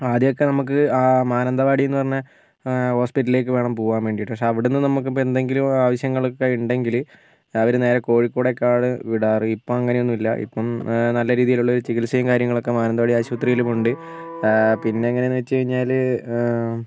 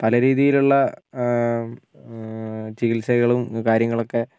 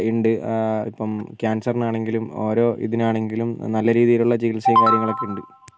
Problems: background sounds at intervals